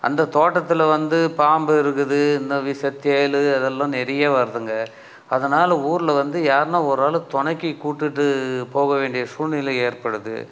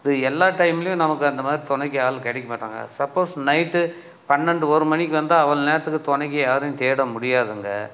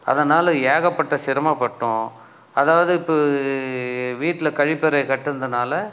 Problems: none marked